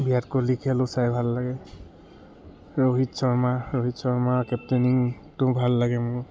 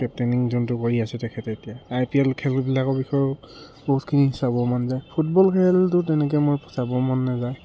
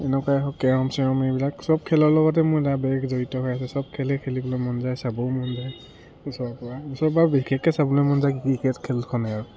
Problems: background sounds at intervals